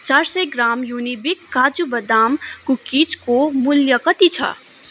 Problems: constant background noise, continuous background conversations